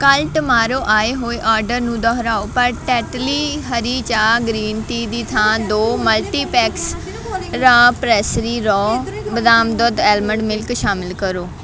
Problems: continuous background conversations